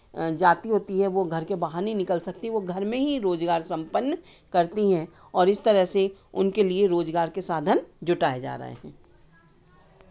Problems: none marked